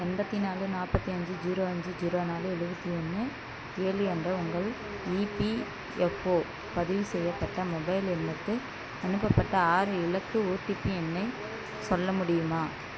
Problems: background sounds at intervals